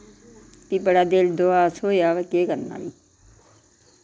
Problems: constant background noise, background conversations at intervals